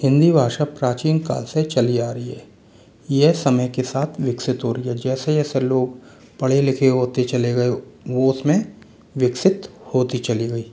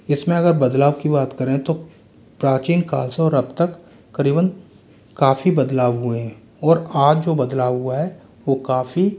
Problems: constant background noise